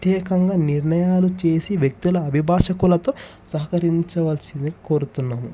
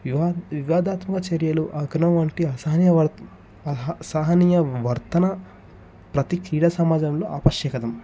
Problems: background sounds at intervals